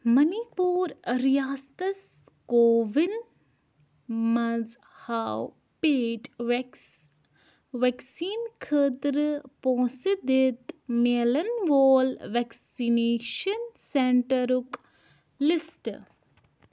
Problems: none marked